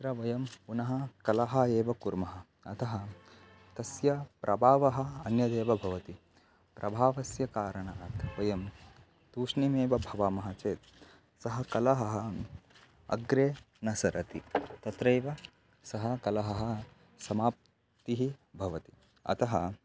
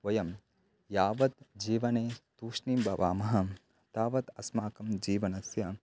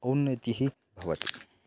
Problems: constant background noise